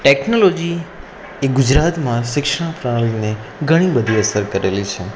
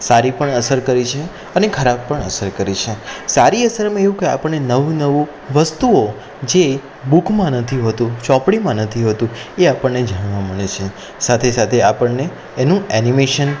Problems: none marked